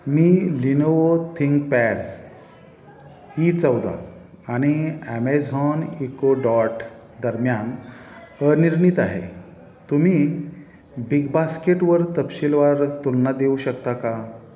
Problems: none marked